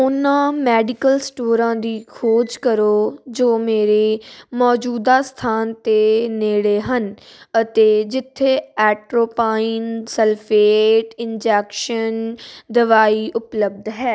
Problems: constant background noise